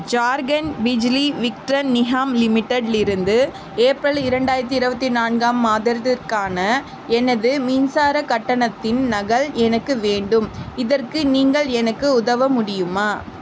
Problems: constant background noise